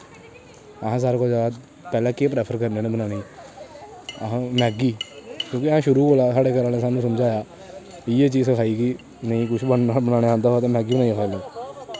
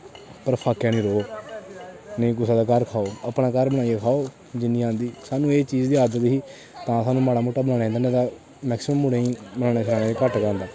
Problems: constant background noise